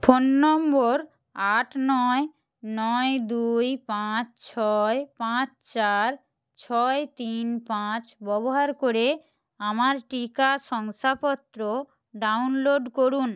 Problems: none marked